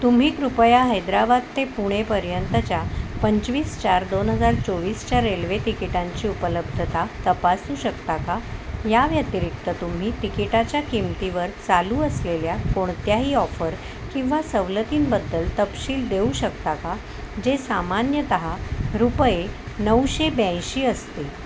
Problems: constant background noise